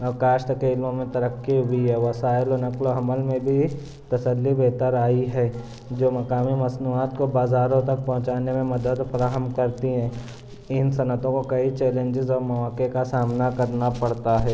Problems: constant background noise